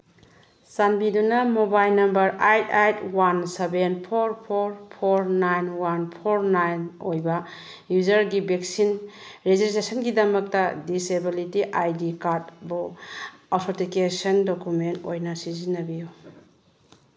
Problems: background sounds at intervals